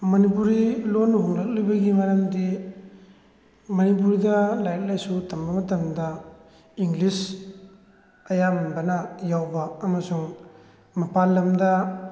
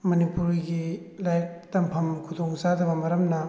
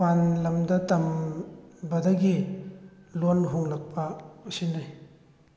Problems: none marked